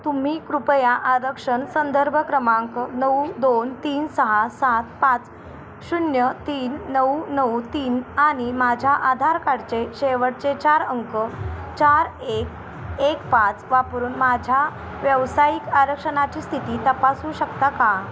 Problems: constant background noise